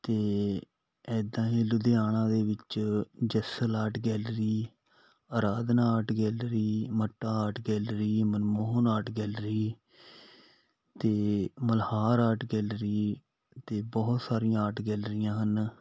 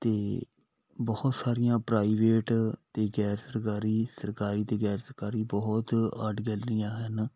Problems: background sounds at intervals